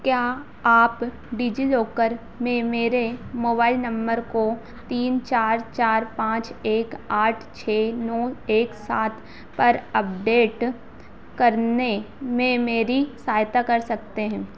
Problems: constant background noise